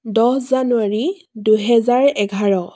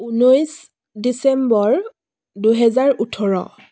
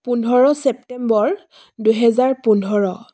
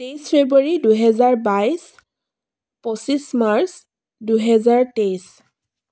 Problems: none marked